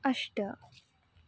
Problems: none marked